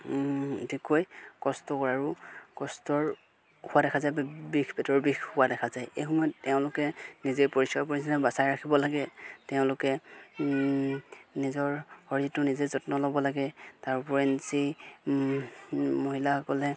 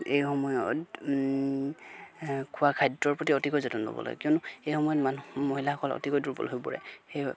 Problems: background sounds at intervals